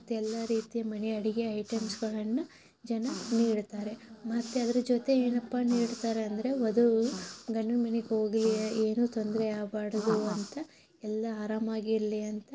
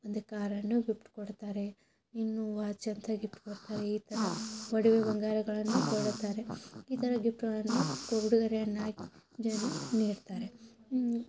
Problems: constant background noise, low volume